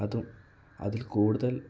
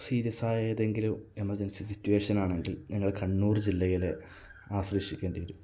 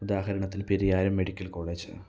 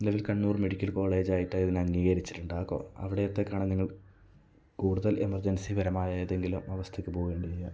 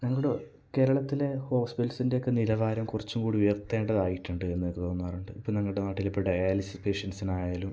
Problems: low volume